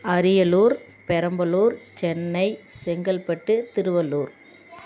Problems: none marked